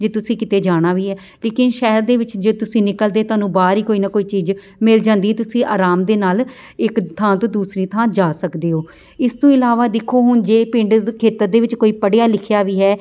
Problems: none marked